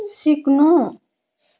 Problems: none marked